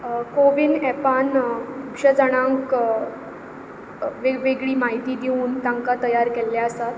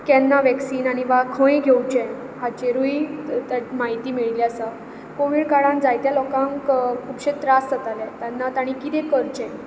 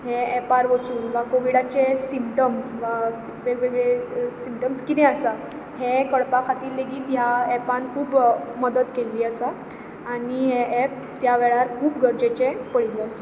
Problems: constant background noise